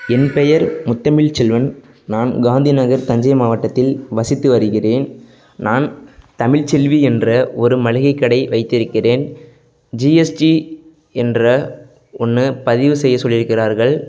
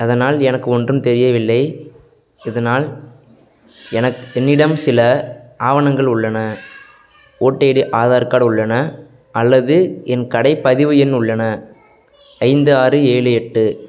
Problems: background sounds at intervals, background conversations at intervals